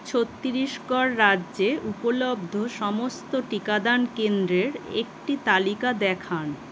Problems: constant background noise